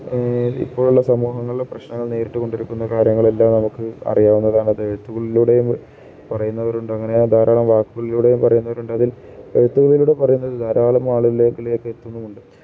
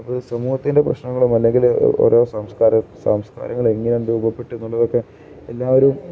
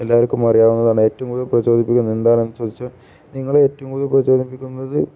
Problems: none marked